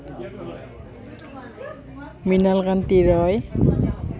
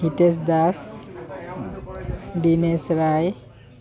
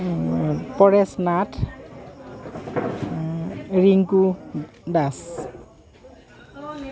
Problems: none marked